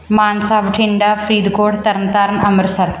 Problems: background sounds at intervals